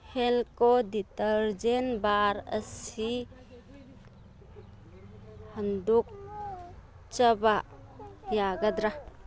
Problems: constant background noise